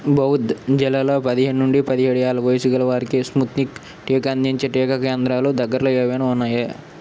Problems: constant background noise